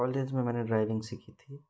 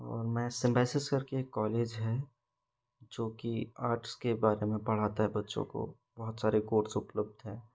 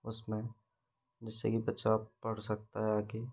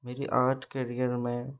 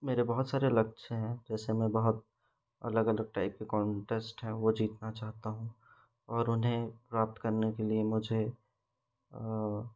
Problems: background sounds at intervals